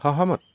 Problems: background sounds at intervals